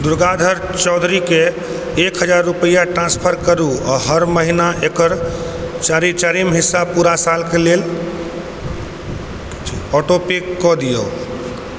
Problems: background sounds at intervals